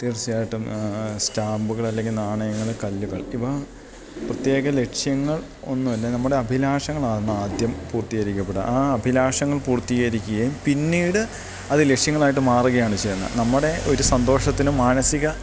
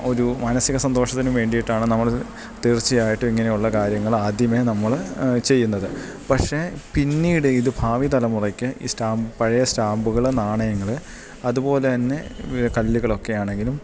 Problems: background sounds at intervals